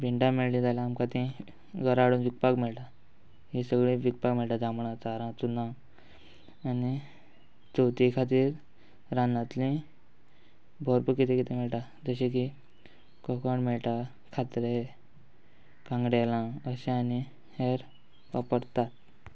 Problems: background sounds at intervals